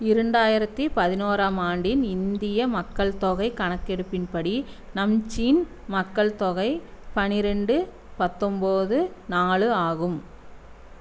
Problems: none marked